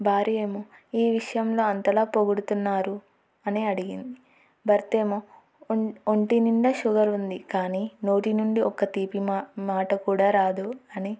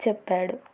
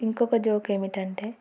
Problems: none marked